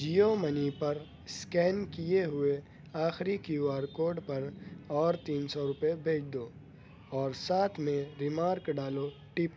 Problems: constant background noise